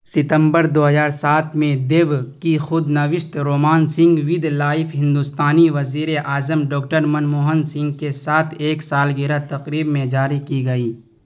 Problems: constant background noise